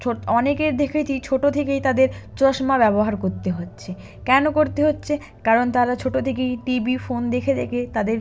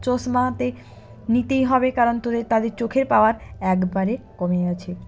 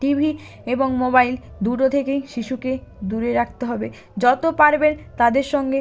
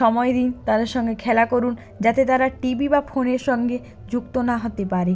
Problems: none marked